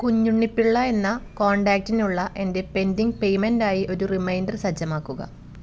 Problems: background sounds at intervals